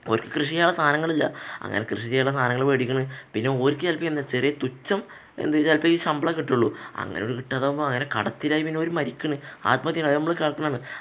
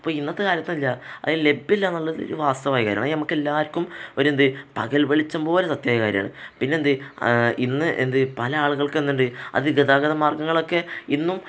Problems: none marked